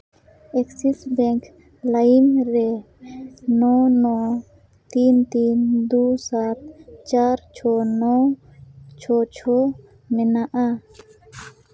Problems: constant background noise